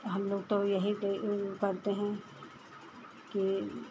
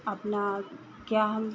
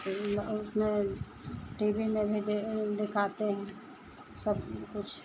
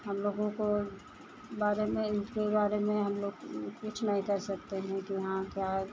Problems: constant background noise